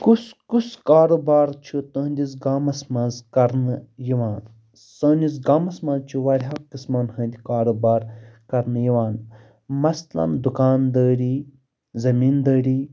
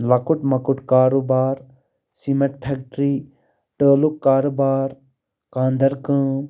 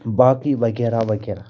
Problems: background sounds at intervals